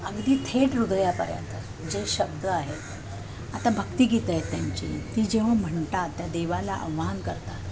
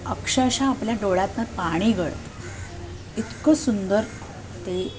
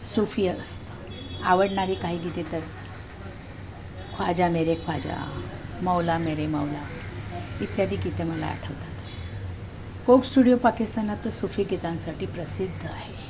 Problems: constant background noise, background conversations at intervals